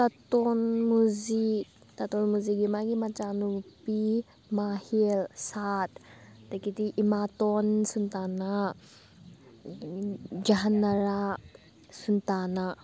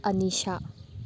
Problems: background sounds at intervals, background conversations at intervals